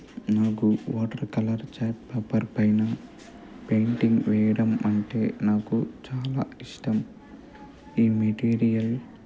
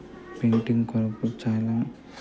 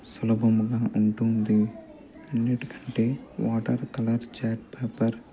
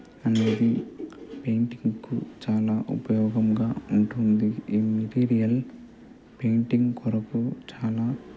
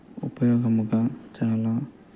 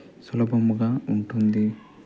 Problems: background conversations at intervals, low volume